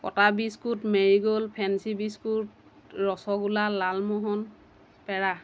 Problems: none marked